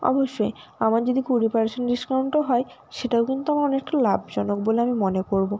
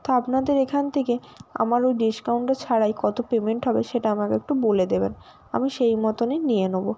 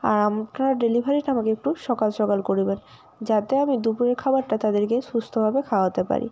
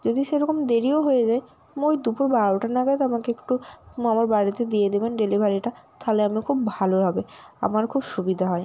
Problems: none marked